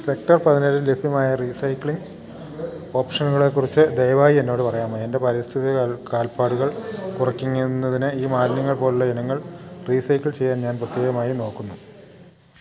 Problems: none marked